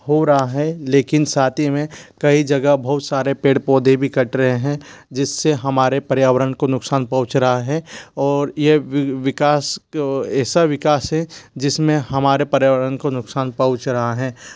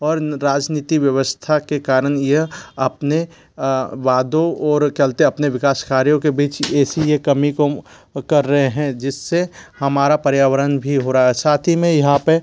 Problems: background sounds at intervals